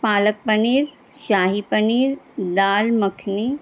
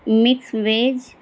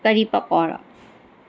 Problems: constant background noise, background conversations at intervals